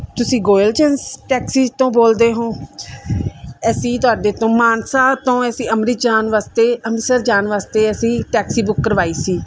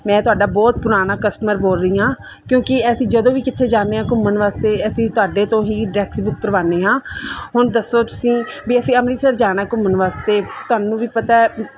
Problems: background sounds at intervals